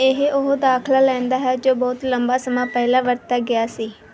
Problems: background sounds at intervals